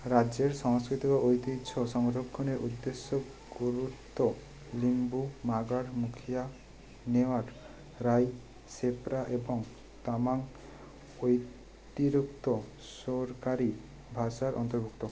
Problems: none marked